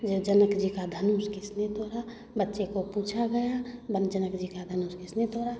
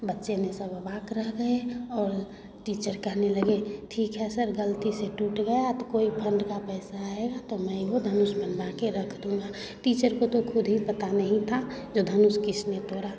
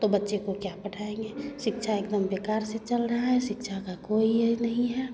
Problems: constant background noise, continuous background conversations